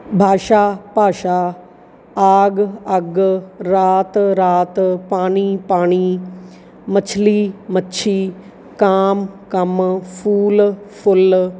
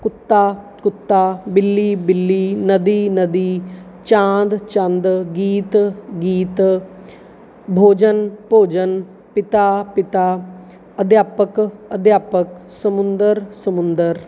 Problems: none marked